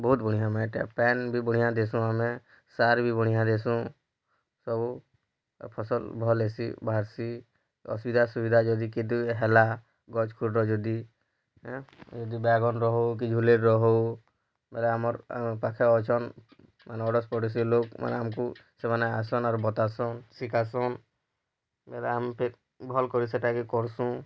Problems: low volume